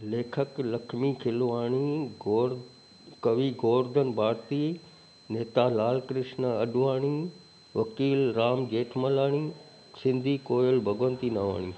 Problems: constant background noise